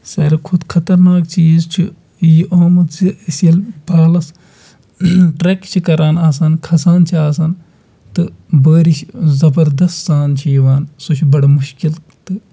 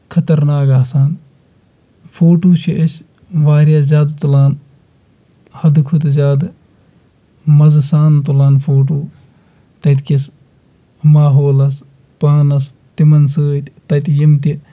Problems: background sounds at intervals